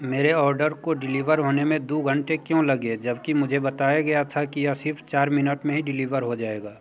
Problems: background sounds at intervals